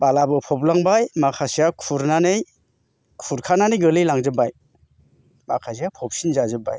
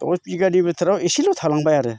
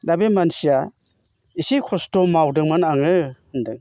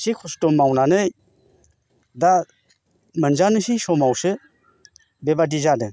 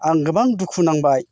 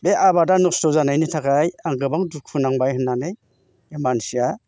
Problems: constant background noise